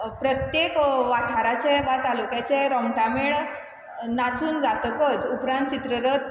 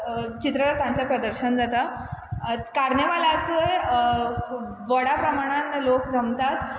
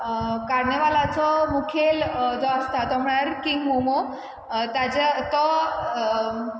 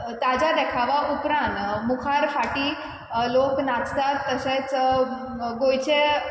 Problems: none marked